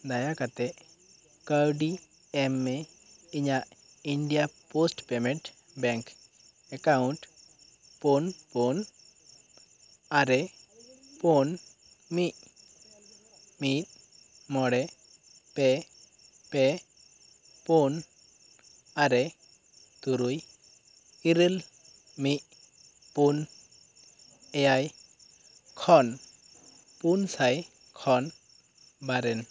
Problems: constant background noise